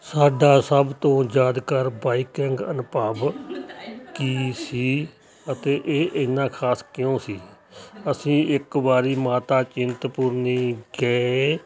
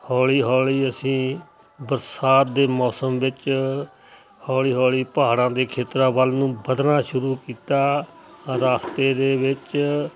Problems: constant background noise, background conversations at intervals